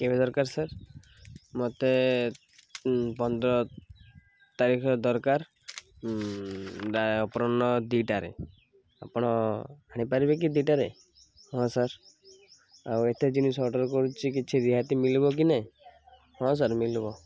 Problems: none marked